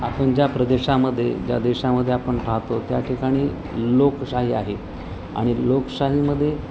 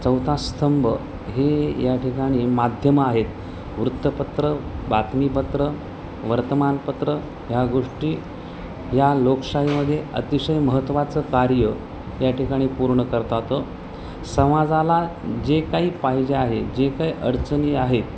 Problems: constant background noise, continuous background conversations